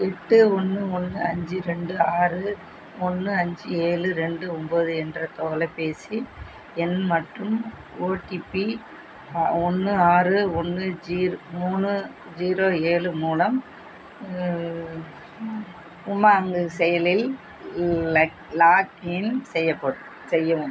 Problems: constant background noise